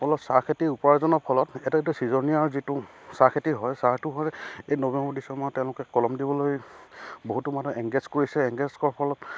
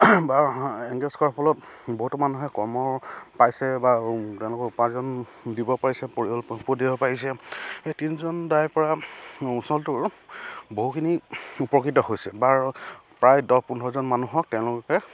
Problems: none marked